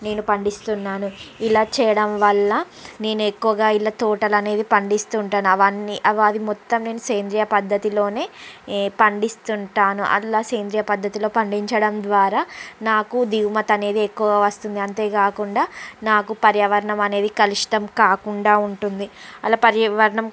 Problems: constant background noise